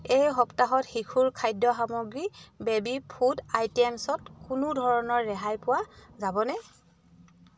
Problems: none marked